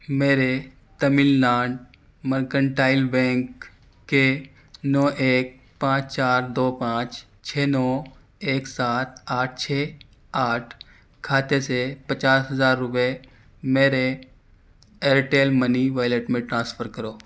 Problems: none marked